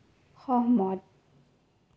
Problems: low volume